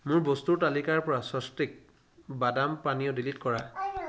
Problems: background conversations at intervals